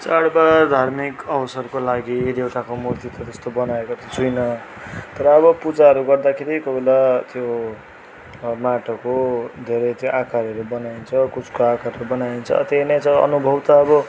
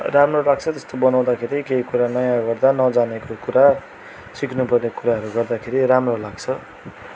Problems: constant background noise